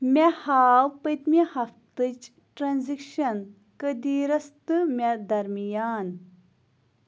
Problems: constant background noise